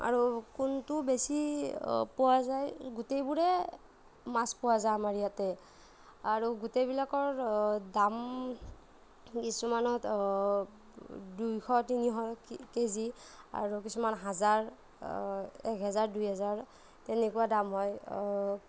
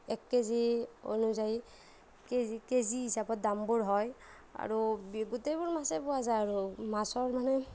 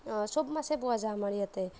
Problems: none marked